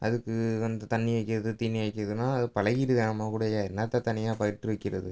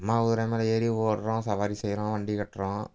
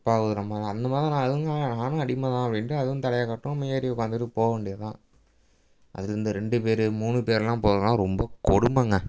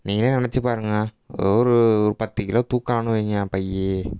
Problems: background sounds at intervals